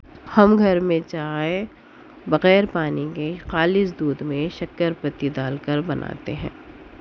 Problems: none marked